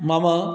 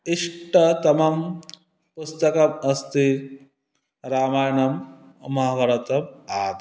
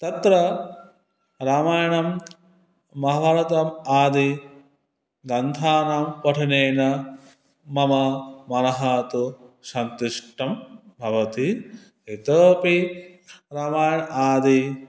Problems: constant background noise